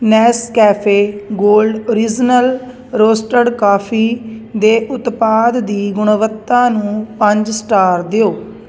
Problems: none marked